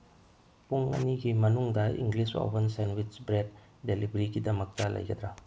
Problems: background sounds at intervals